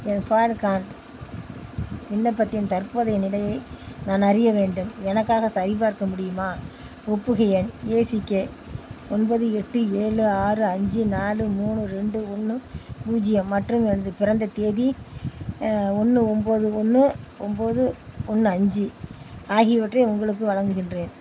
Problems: constant background noise